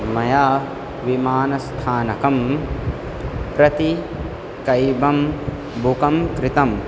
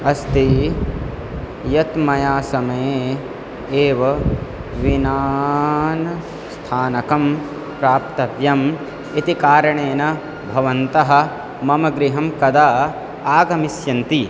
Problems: none marked